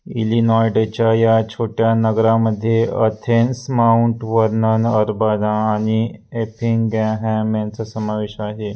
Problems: none marked